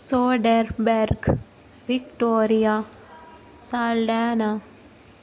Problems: none marked